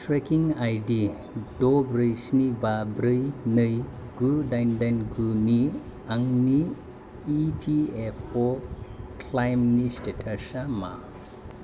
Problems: constant background noise